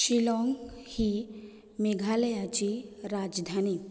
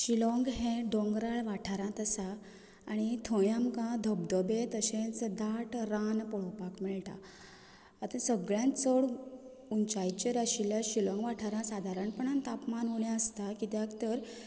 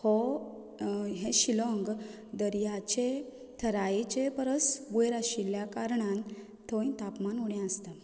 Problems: background sounds at intervals